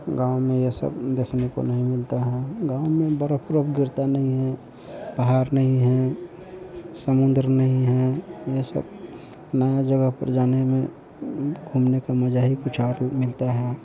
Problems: constant background noise